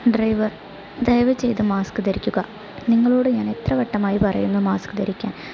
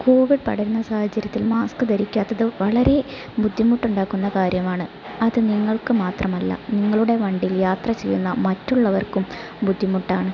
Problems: constant background noise